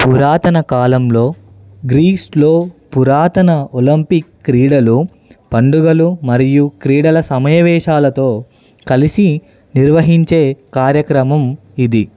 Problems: none marked